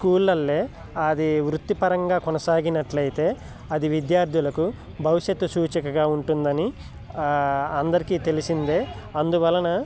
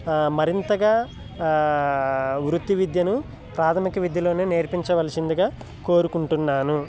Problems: none marked